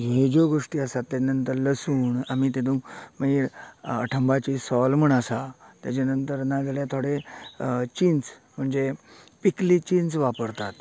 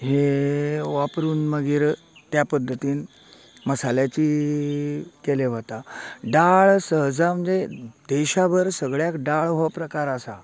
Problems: continuous background conversations